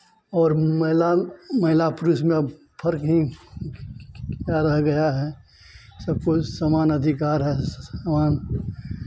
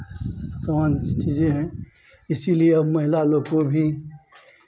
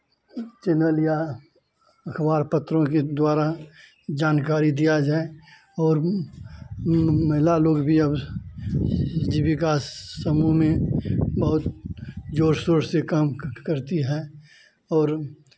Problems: none marked